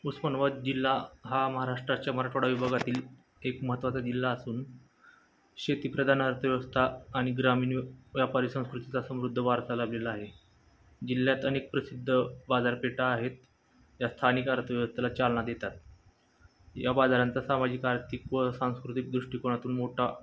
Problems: constant background noise, background conversations at intervals